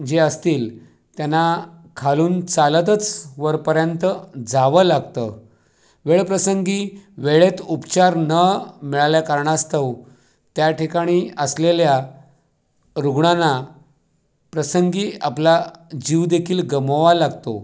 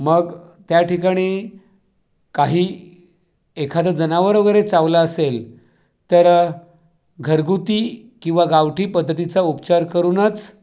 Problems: none marked